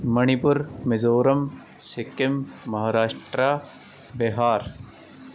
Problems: background sounds at intervals